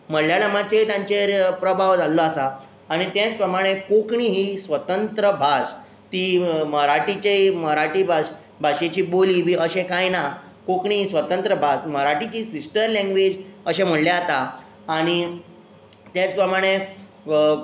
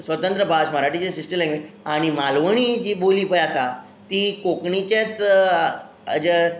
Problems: none marked